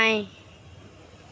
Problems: none marked